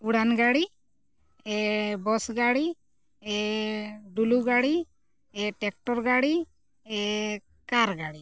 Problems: background sounds at intervals